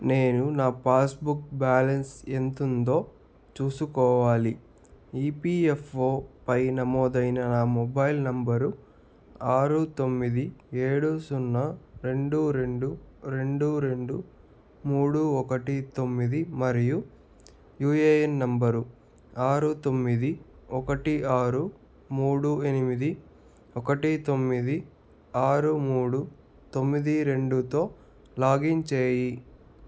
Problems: constant background noise